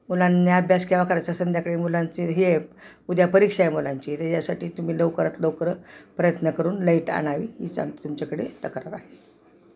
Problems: none marked